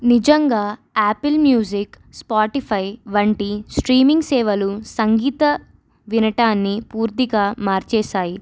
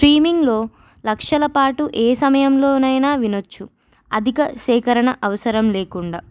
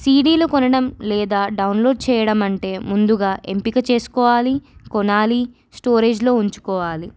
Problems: none marked